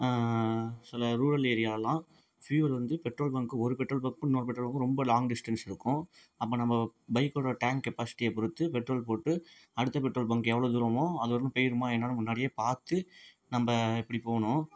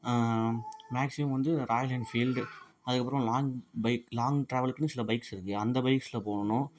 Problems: background sounds at intervals, low volume